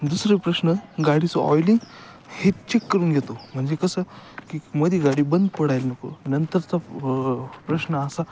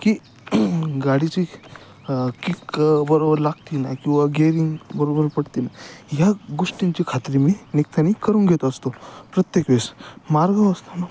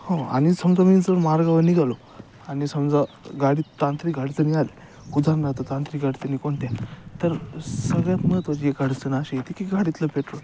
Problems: none marked